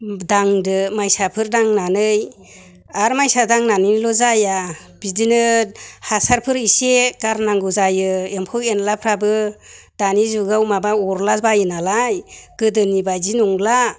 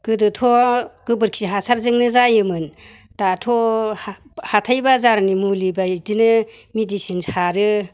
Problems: none marked